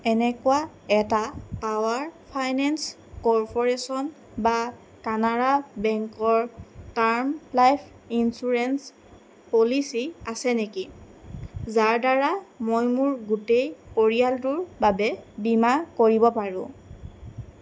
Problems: none marked